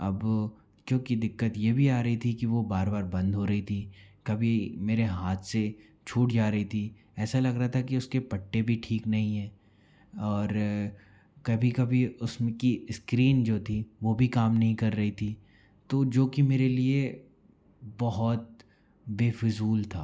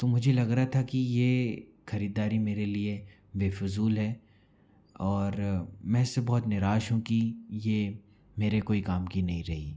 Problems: low volume